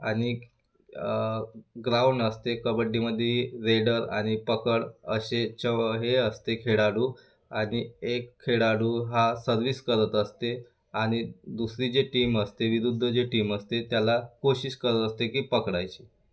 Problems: none marked